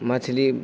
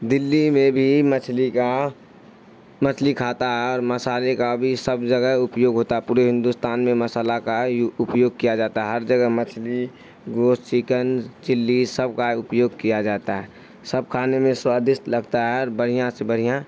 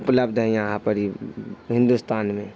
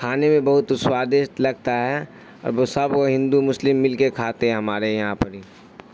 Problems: constant background noise